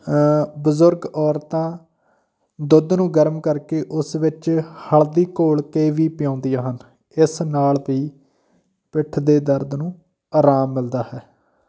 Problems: background sounds at intervals